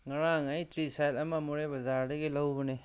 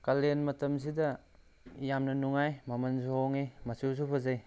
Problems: low volume